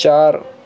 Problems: none marked